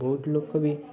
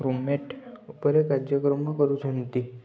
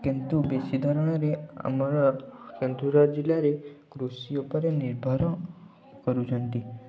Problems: constant background noise, continuous background conversations, low volume